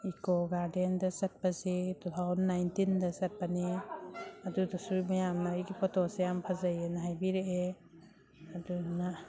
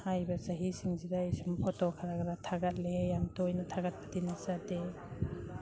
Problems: background sounds at intervals